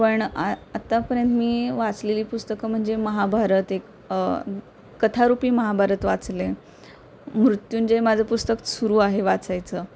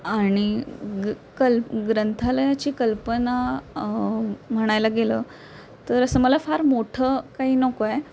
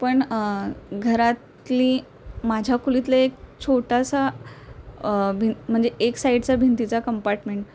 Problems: constant background noise